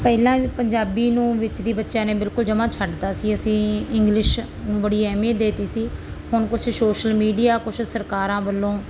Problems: constant background noise